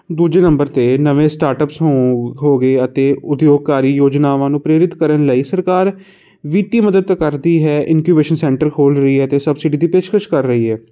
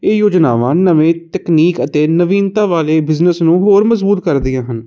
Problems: constant background noise